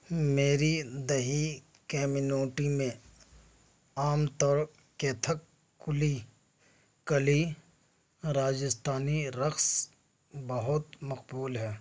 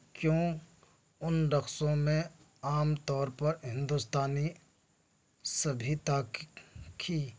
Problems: none marked